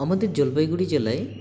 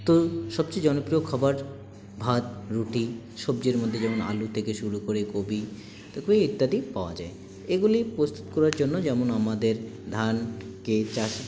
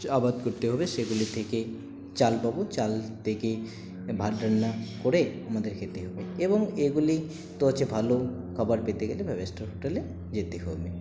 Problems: none marked